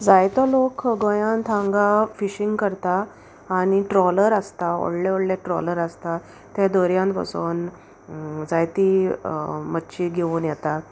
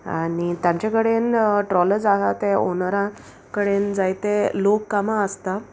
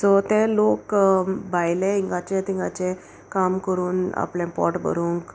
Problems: constant background noise